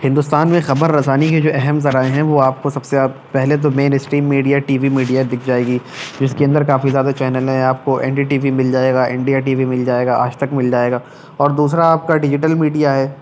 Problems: none marked